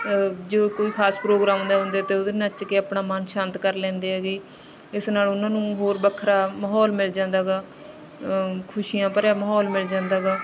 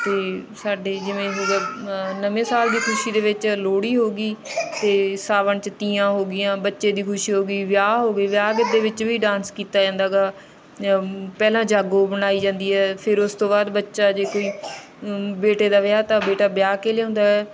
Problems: constant background noise